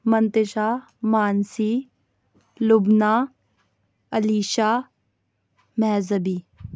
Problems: none marked